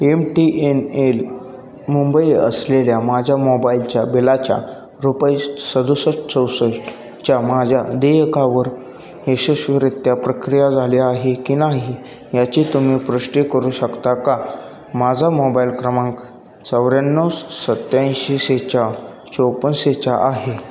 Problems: constant background noise, background conversations at intervals